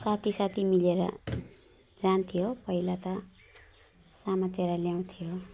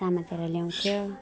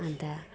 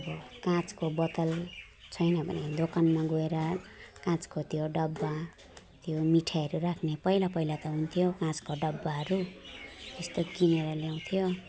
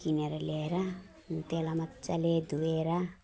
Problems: background sounds at intervals